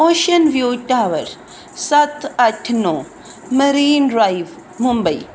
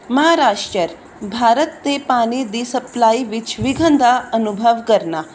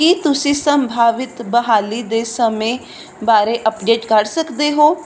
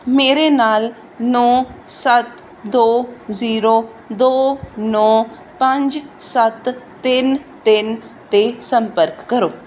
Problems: none marked